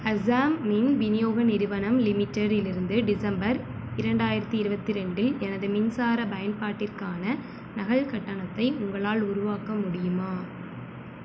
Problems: constant background noise